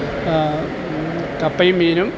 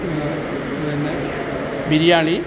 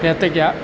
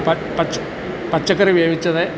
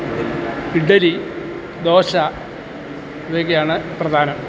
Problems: constant background noise